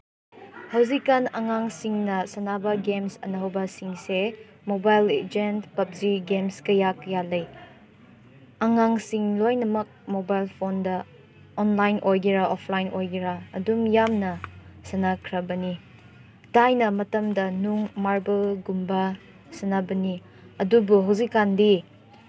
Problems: none marked